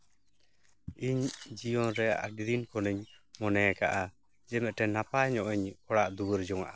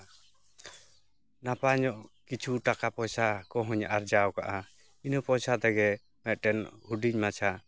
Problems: none marked